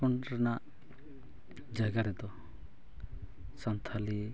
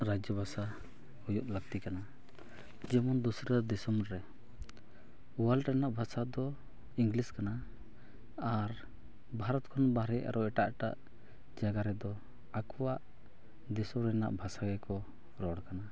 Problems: none marked